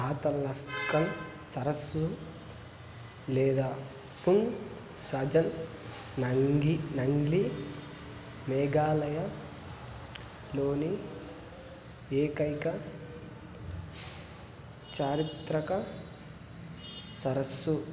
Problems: none marked